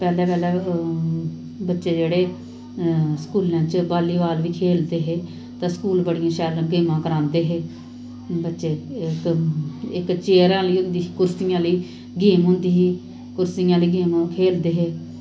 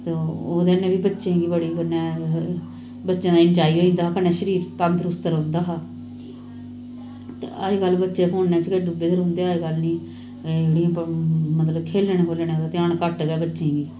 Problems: none marked